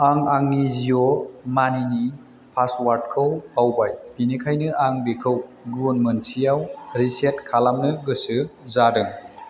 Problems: constant background noise